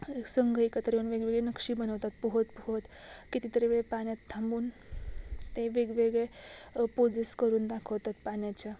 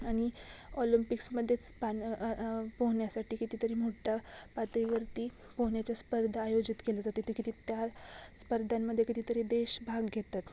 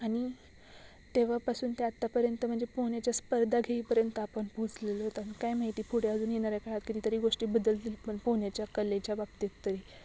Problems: constant background noise